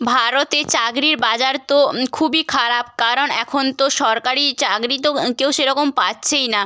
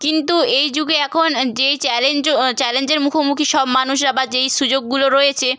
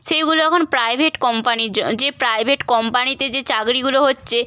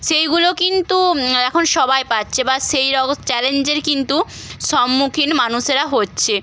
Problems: background sounds at intervals